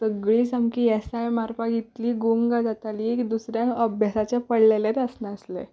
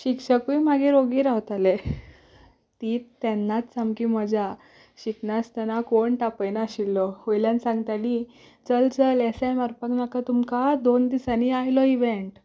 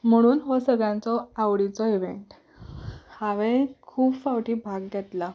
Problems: background sounds at intervals